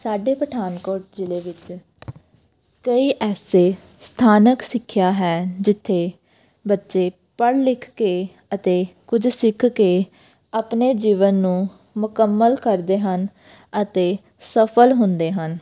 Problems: none marked